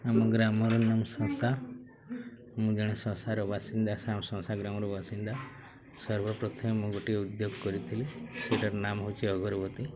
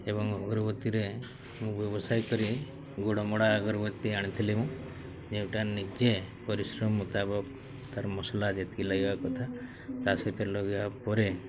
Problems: none marked